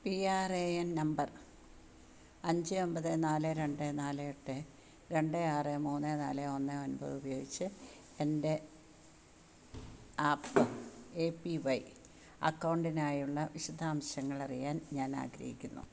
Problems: background sounds at intervals, low volume